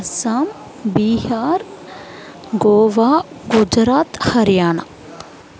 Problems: background sounds at intervals